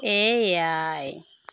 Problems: constant background noise